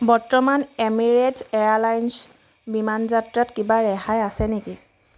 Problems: constant background noise